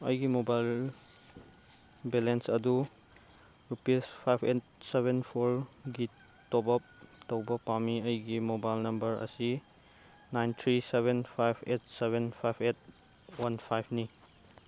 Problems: background sounds at intervals